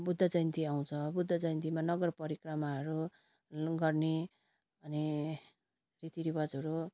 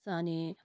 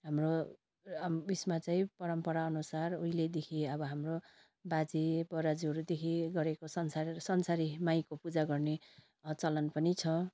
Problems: constant background noise